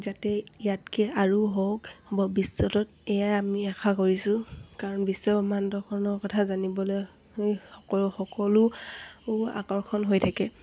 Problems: none marked